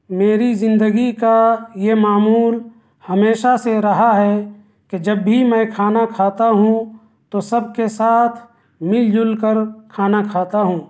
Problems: none marked